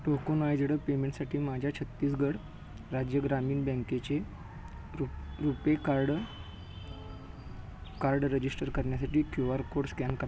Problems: background sounds at intervals